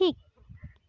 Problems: none marked